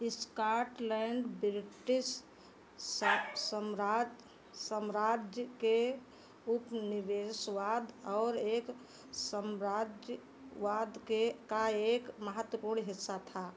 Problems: none marked